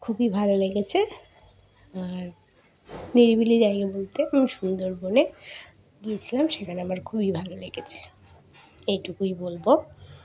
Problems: background sounds at intervals, continuous background conversations